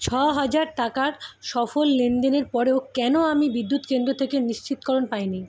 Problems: constant background noise